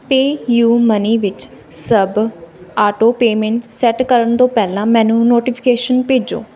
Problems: background sounds at intervals, background conversations at intervals